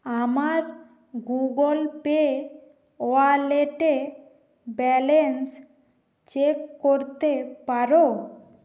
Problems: constant background noise